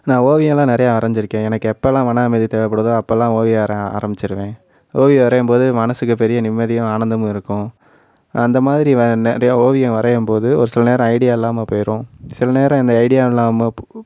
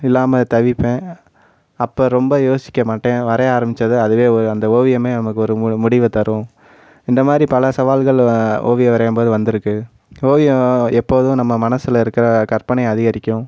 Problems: constant background noise